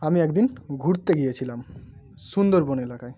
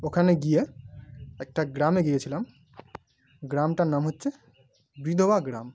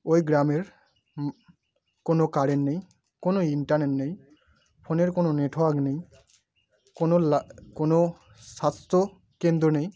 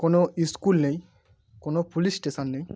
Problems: none marked